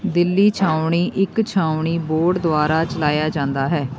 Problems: constant background noise, background conversations at intervals